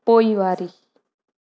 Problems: constant background noise